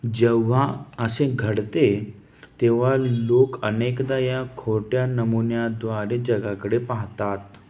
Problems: none marked